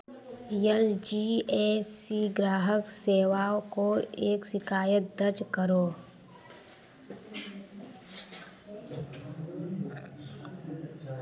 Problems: constant background noise